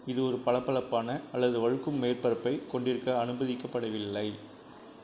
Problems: low volume